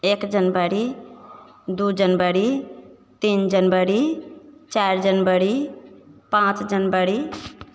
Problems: none marked